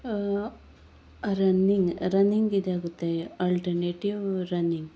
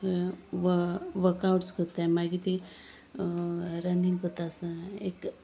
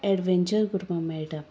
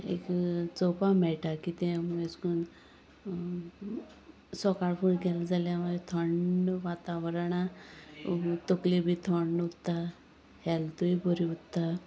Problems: none marked